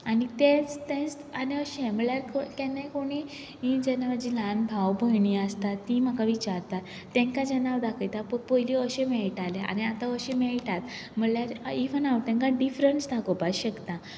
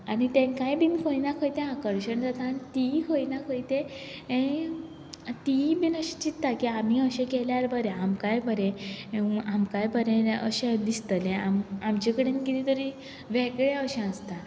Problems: background sounds at intervals